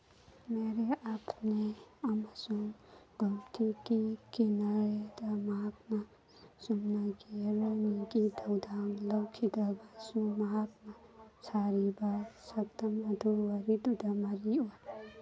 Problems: background sounds at intervals, background conversations at intervals